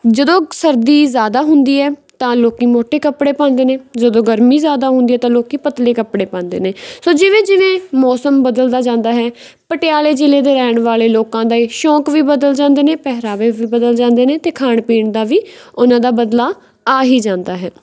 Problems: background sounds at intervals